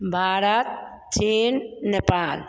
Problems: constant background noise